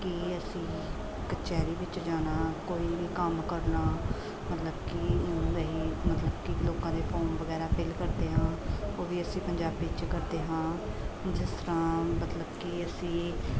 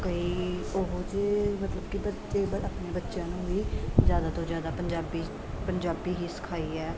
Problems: continuous background conversations